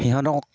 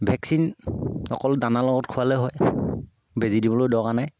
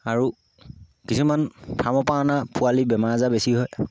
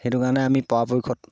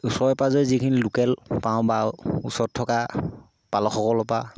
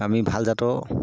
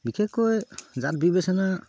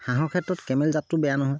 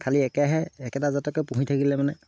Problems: low volume